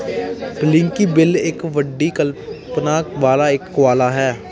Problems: continuous background conversations